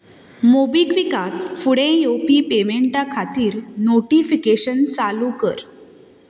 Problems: none marked